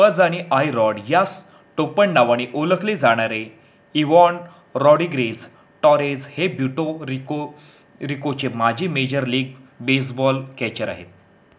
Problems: background sounds at intervals